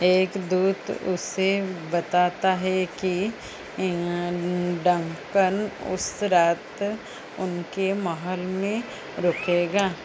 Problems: background sounds at intervals